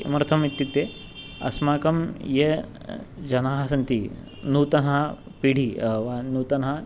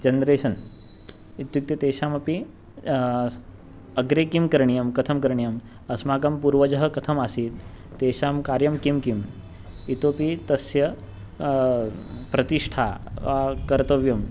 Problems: background sounds at intervals